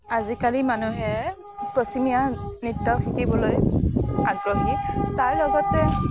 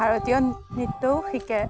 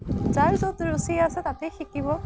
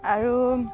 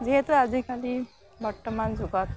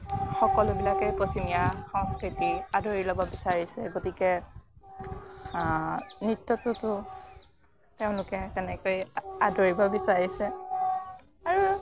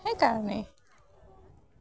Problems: none marked